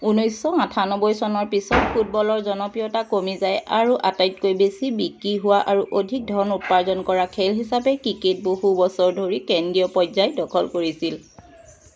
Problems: constant background noise